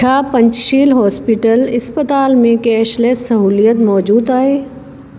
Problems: constant background noise, echo